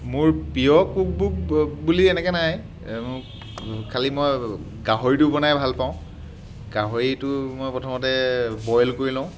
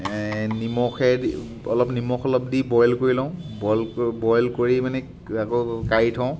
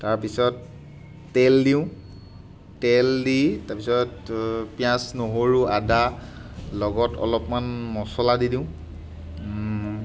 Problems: background sounds at intervals